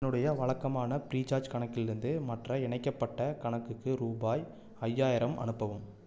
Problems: none marked